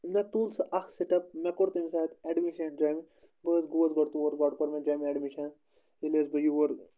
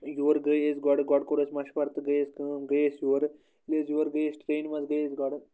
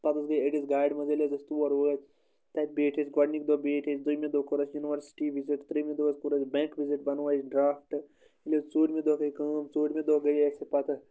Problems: none marked